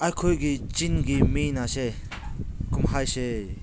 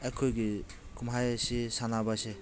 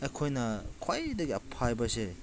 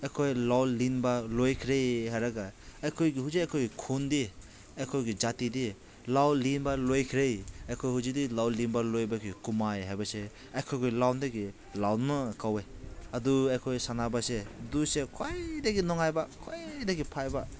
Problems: background conversations at intervals